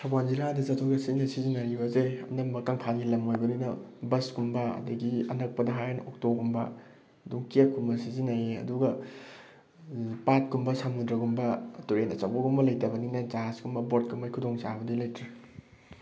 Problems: none marked